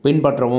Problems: none marked